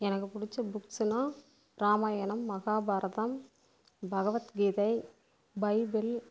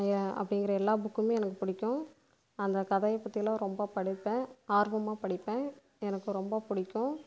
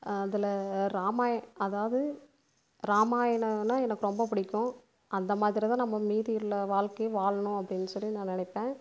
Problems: constant background noise